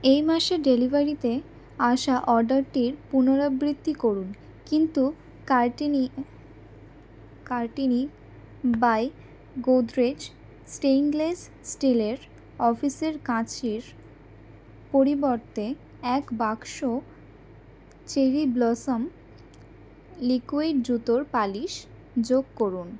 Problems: none marked